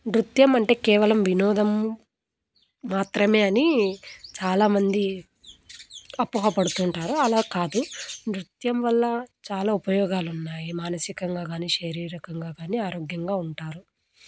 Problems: background sounds at intervals